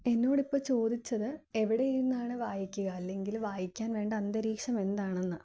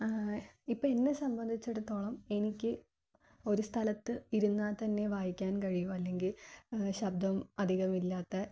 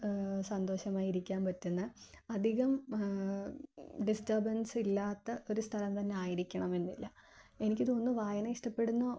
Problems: none marked